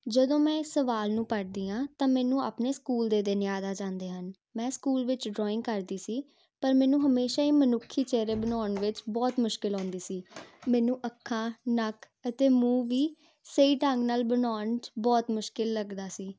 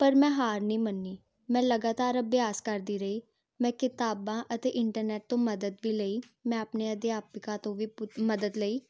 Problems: constant background noise